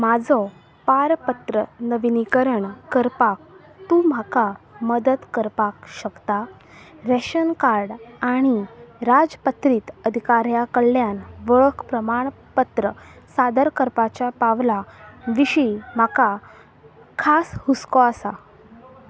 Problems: constant background noise